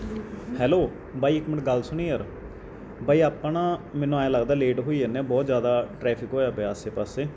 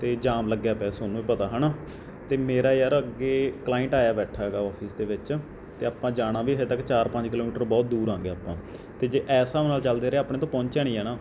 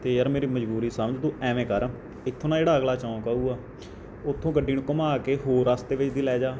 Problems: background conversations at intervals